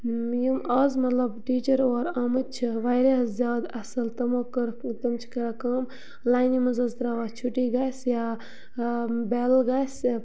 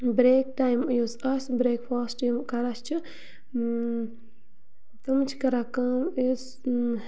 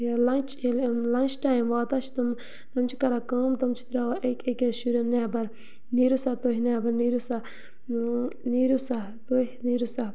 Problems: low volume